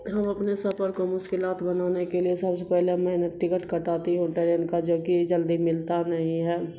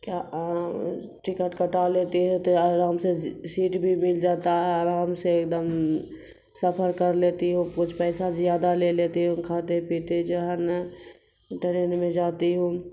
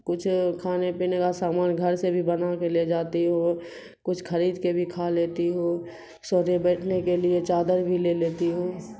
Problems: constant background noise